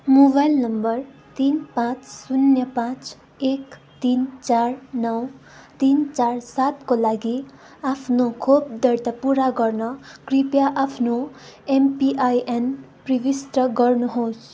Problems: constant background noise